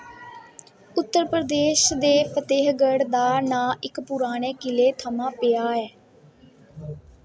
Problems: none marked